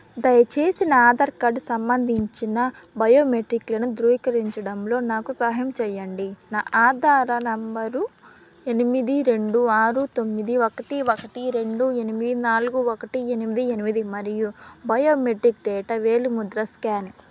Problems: background sounds at intervals